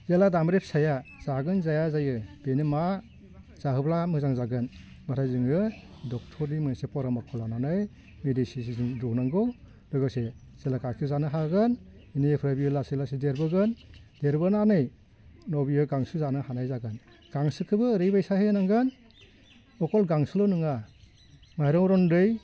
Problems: constant background noise